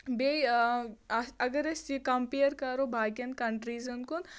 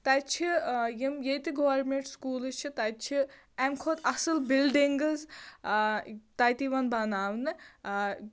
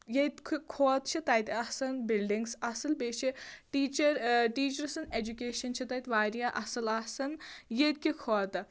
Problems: constant background noise